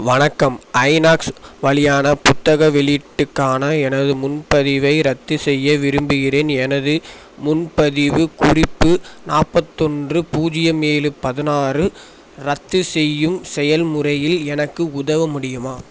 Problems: constant background noise